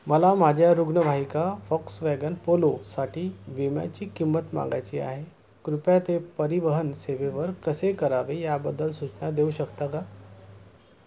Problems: none marked